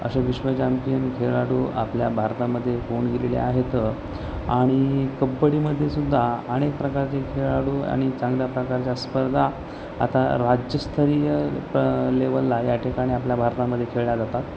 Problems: constant background noise, background conversations at intervals